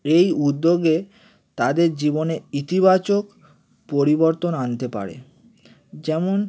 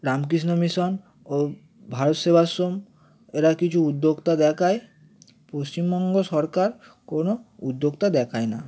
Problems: none marked